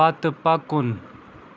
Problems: none marked